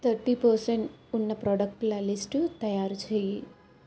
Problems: constant background noise